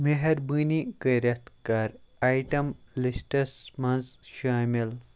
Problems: background sounds at intervals